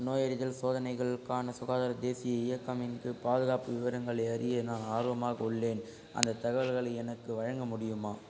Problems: constant background noise, low volume